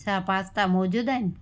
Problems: constant background noise